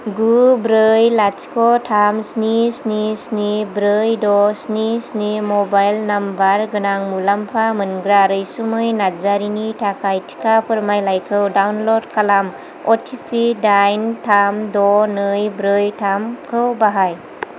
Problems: none marked